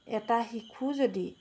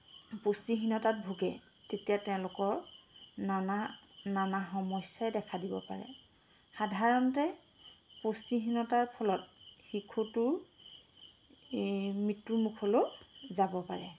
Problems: none marked